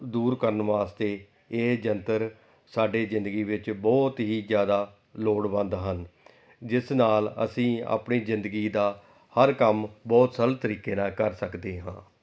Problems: none marked